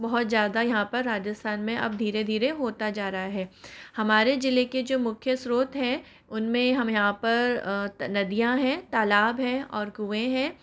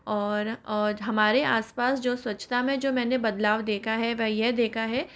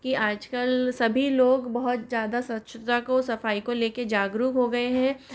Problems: none marked